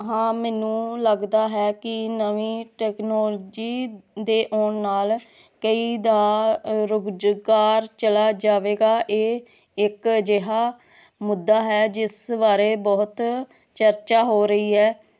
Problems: none marked